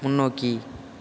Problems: none marked